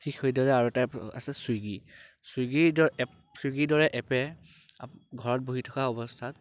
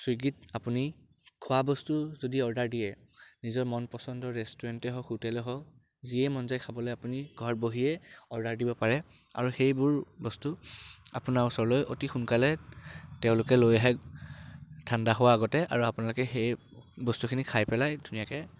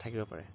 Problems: background sounds at intervals